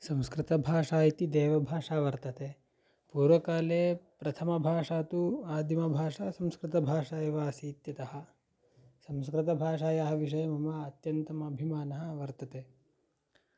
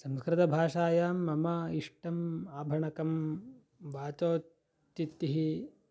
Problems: none marked